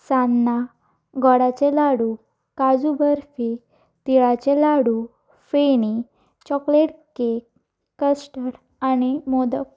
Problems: background sounds at intervals